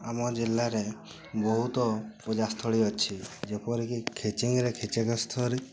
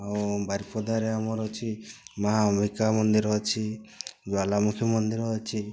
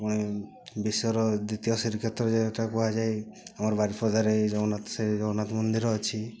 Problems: constant background noise, continuous background conversations